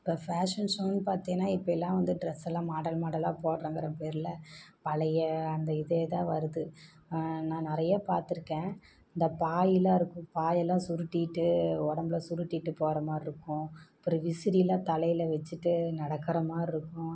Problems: low volume